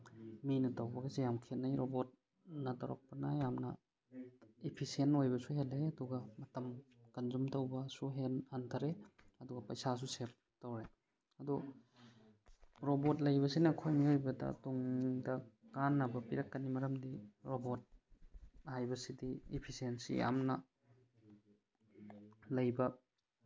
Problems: none marked